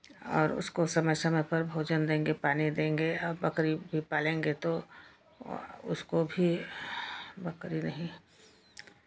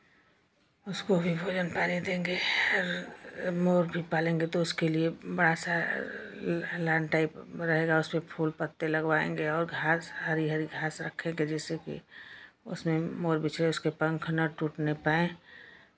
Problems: none marked